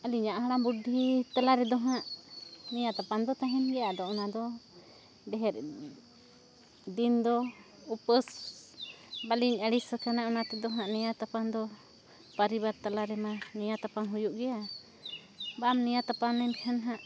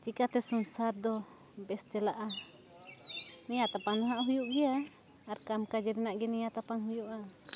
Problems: background sounds at intervals